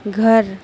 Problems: constant background noise